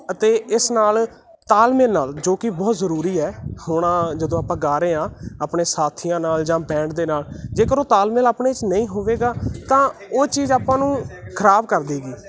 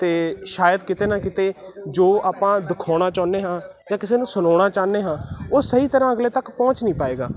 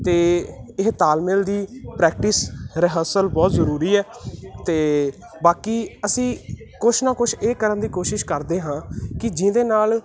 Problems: continuous background conversations